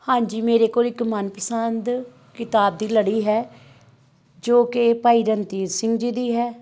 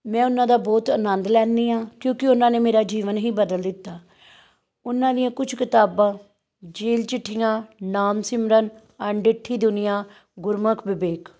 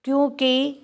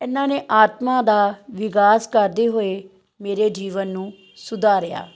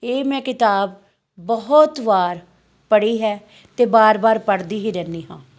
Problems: none marked